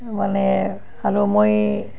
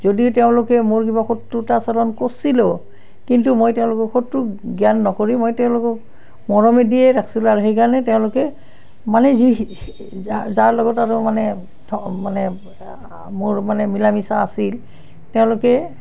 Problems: none marked